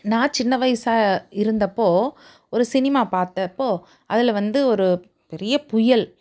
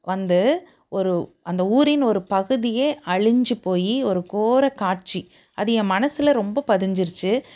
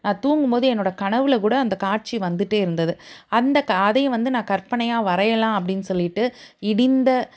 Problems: none marked